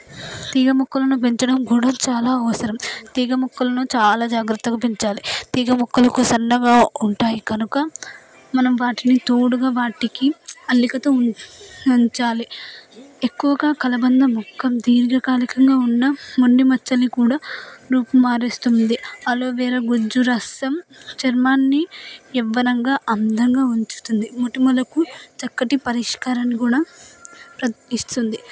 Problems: constant background noise